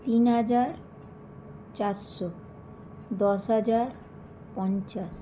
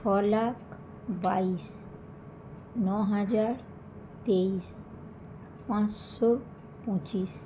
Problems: none marked